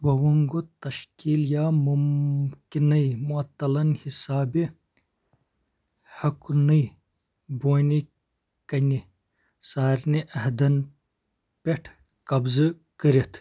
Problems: none marked